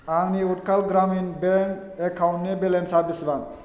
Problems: constant background noise